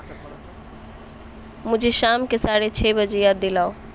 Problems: background sounds at intervals